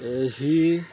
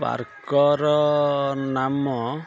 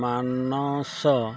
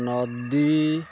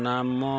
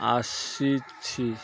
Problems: constant background noise